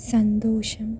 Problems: low volume